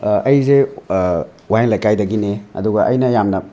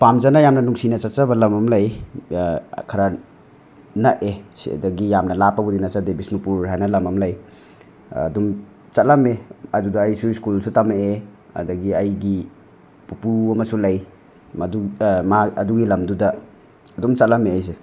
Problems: none marked